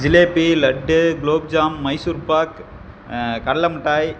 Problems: constant background noise